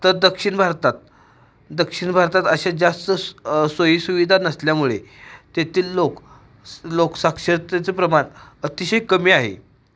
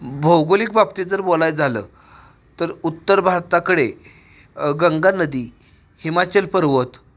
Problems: background sounds at intervals